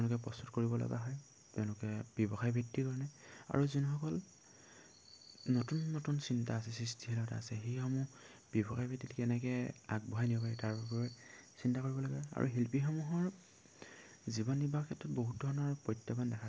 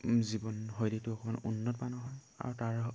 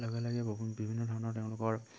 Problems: none marked